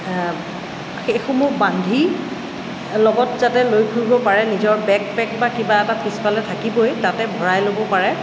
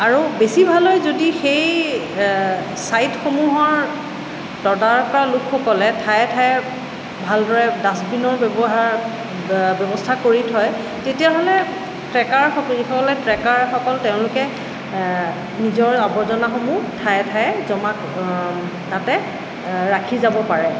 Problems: constant background noise